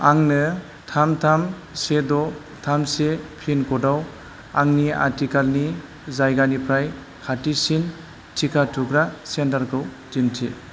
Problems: none marked